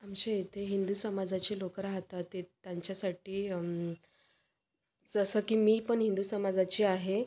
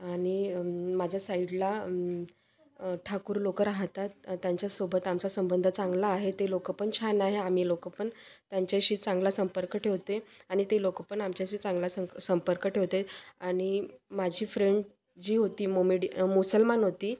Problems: constant background noise, background conversations at intervals